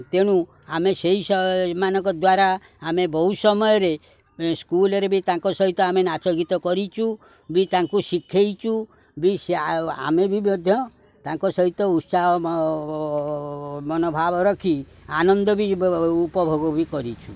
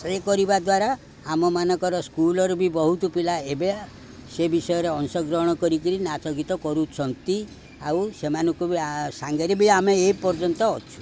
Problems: background sounds at intervals, background conversations at intervals